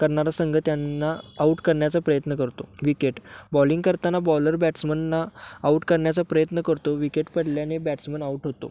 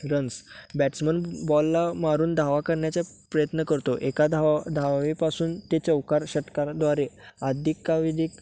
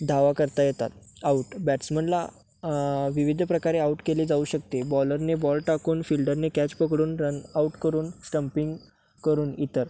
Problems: none marked